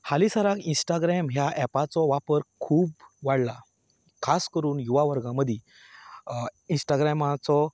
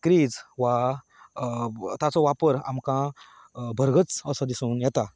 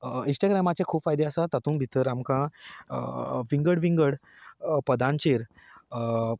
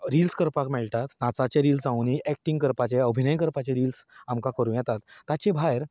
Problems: constant background noise